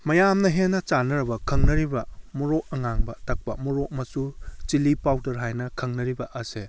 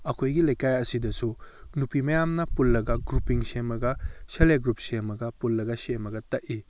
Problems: none marked